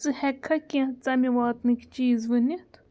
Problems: none marked